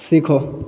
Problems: background sounds at intervals